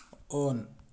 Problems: low volume